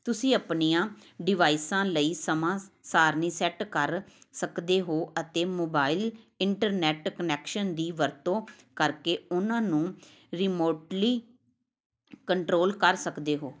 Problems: background sounds at intervals